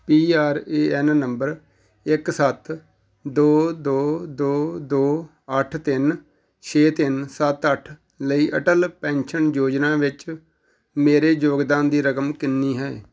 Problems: background sounds at intervals